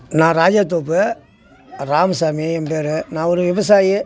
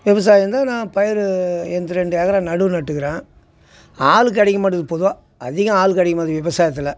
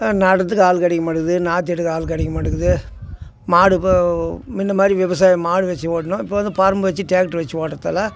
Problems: constant background noise